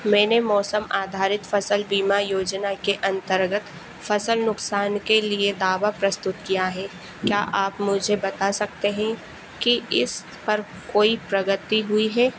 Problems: constant background noise